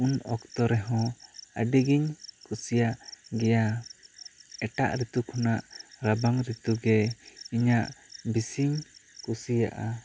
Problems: constant background noise